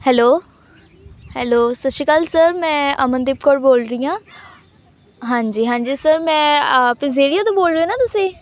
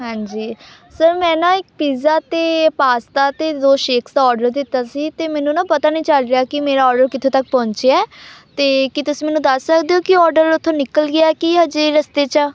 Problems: background sounds at intervals, background conversations at intervals